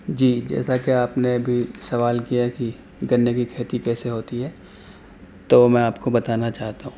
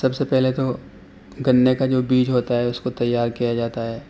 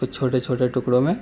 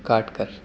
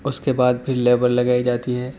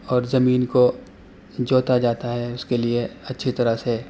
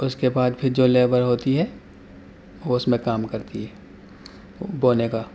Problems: constant background noise